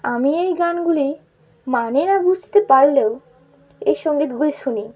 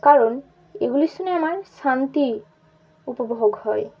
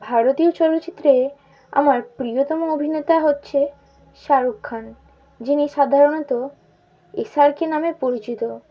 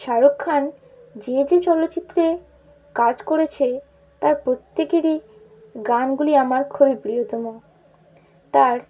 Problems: constant background noise